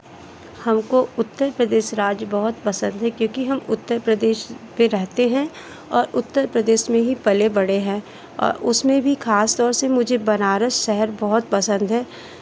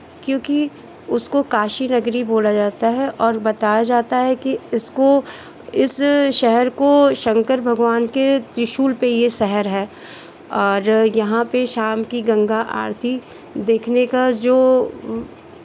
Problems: constant background noise, background conversations at intervals